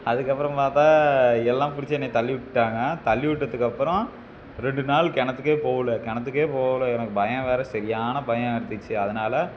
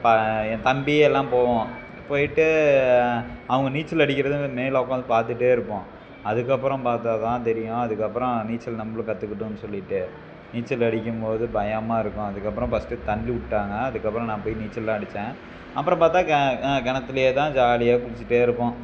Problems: constant background noise